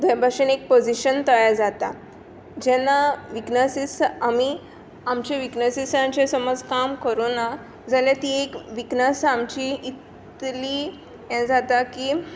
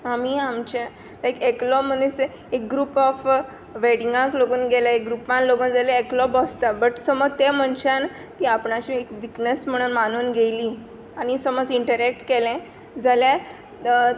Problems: constant background noise